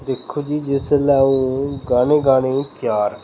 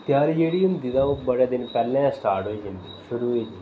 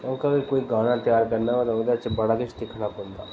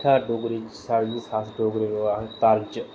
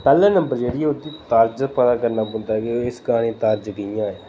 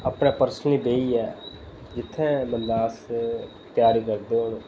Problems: none marked